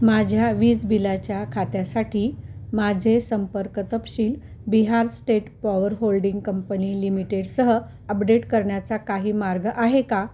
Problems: constant background noise, background conversations at intervals